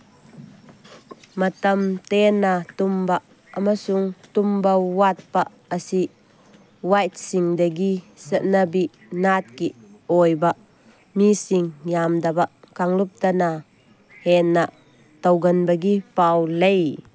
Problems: background sounds at intervals